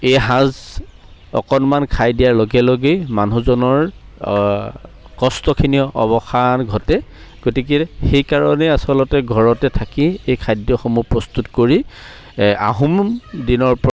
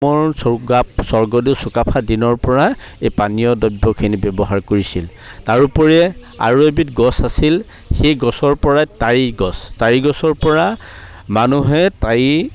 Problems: none marked